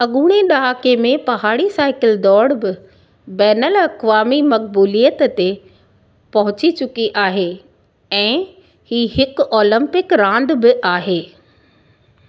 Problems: none marked